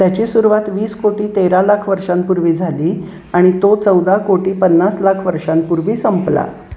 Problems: constant background noise